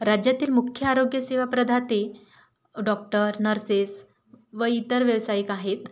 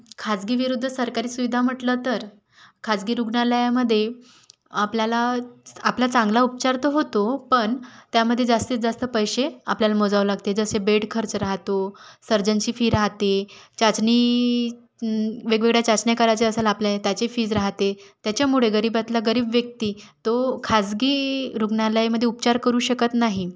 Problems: none marked